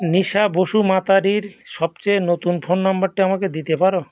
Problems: background sounds at intervals